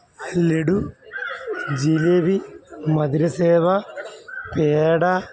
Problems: constant background noise, background conversations at intervals